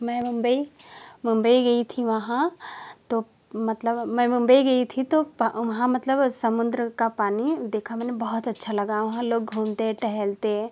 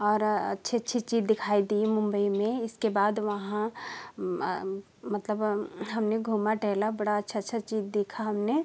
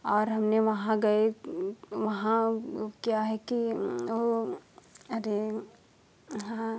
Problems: constant background noise